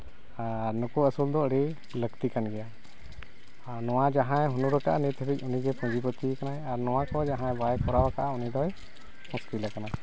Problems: constant background noise